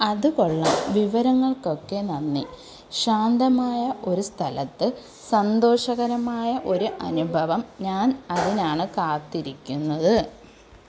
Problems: none marked